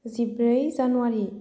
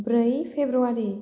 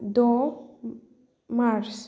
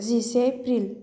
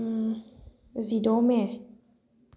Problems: none marked